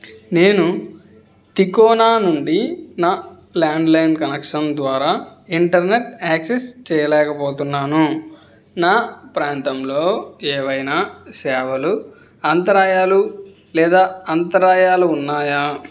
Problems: none marked